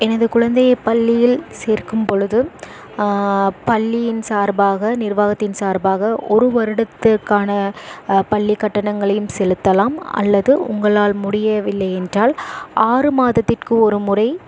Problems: constant background noise